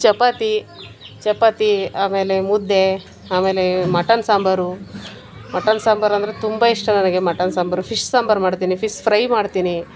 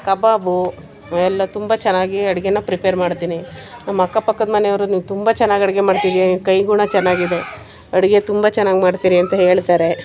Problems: background sounds at intervals